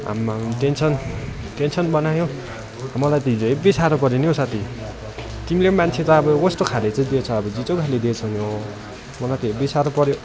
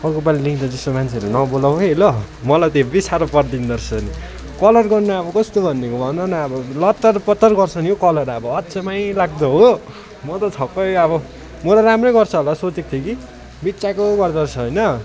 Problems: continuous background conversations